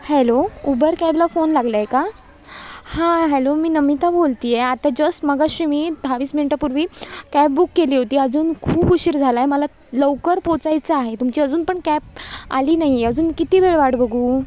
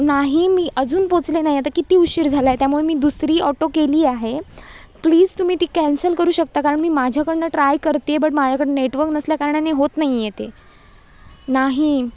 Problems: none marked